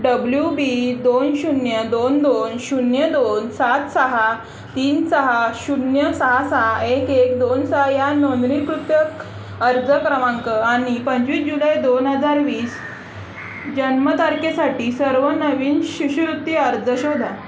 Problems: constant background noise, continuous background conversations